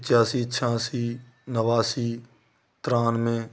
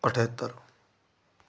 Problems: constant background noise